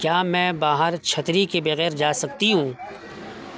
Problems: constant background noise